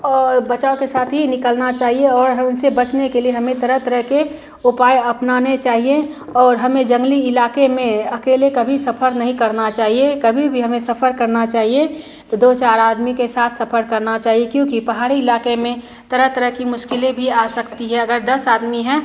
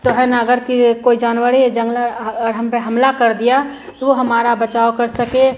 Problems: continuous background conversations